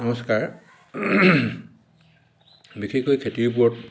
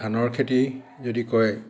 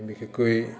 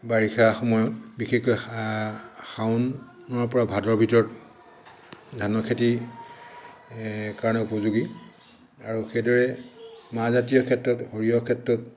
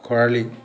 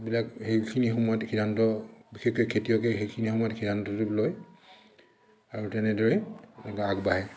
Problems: constant background noise, echo